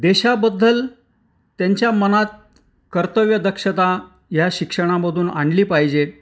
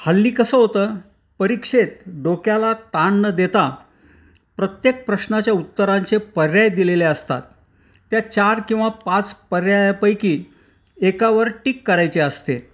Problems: background sounds at intervals